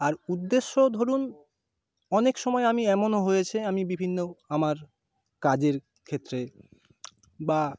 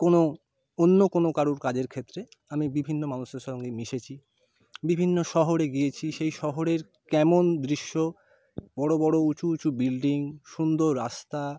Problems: none marked